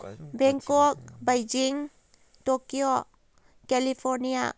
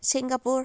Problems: background conversations at intervals